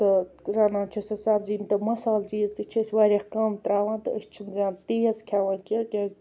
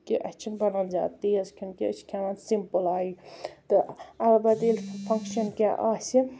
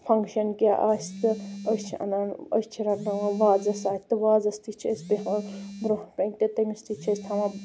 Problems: none marked